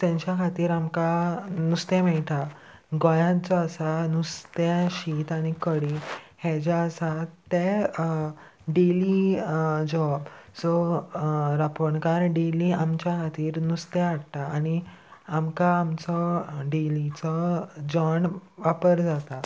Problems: constant background noise